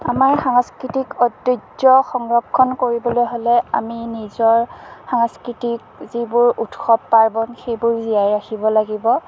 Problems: background sounds at intervals, background conversations at intervals